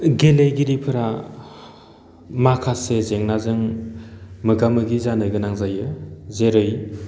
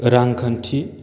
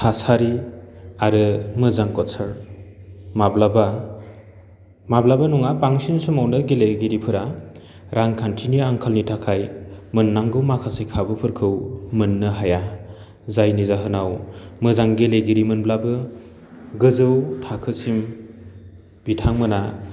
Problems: none marked